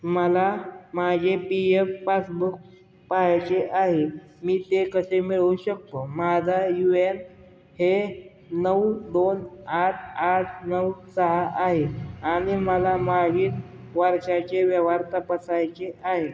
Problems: constant background noise